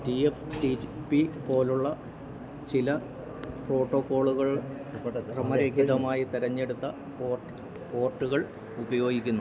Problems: none marked